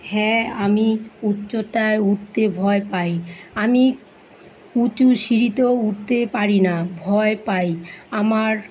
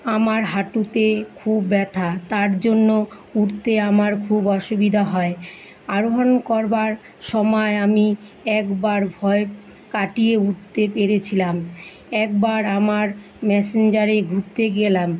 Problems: constant background noise